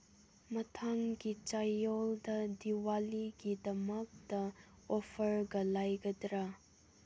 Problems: none marked